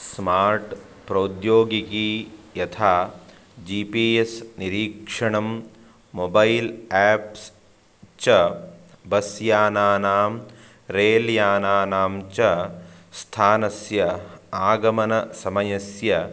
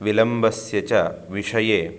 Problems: background sounds at intervals